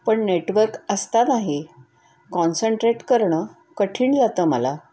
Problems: background sounds at intervals